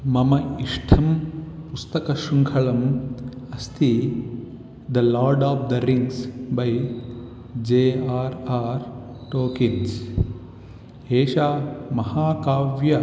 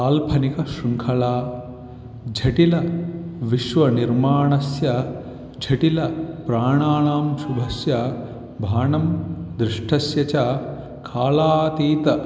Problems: none marked